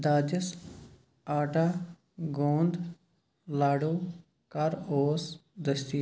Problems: background sounds at intervals